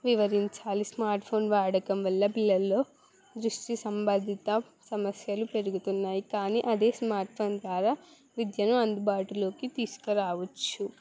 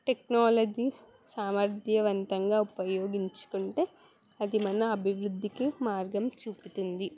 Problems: background sounds at intervals